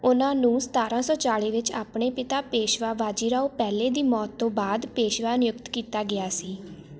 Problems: constant background noise